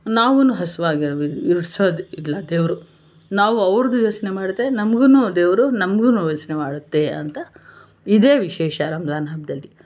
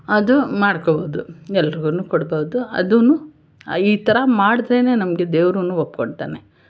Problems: constant background noise